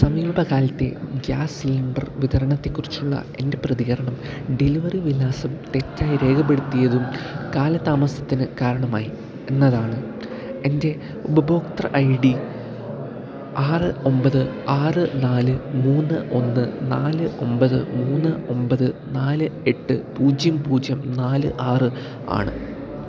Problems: low volume